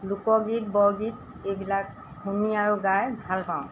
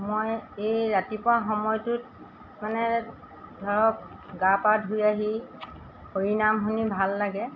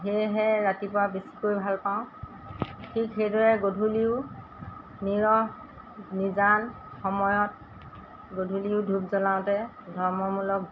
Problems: constant background noise